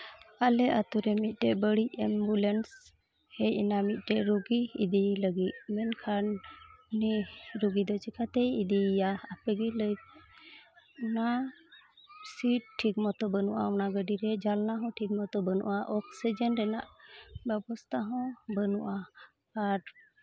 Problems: constant background noise, continuous background conversations